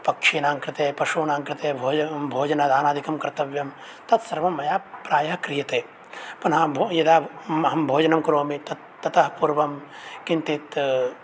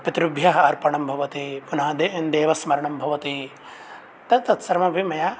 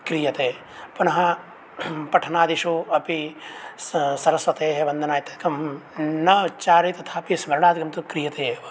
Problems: constant background noise